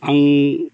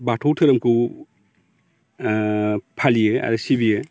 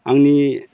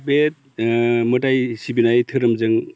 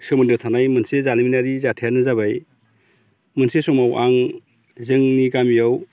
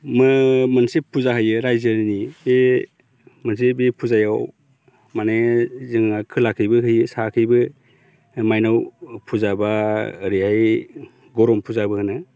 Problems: constant background noise